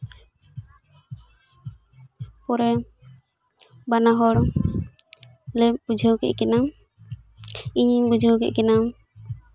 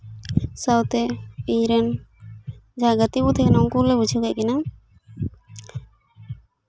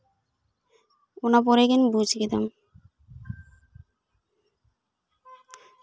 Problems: constant background noise